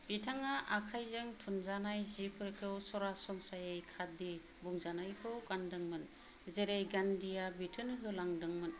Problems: low volume